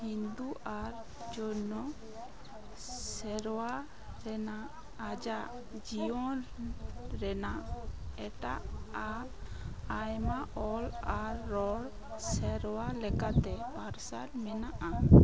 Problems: background sounds at intervals, continuous background conversations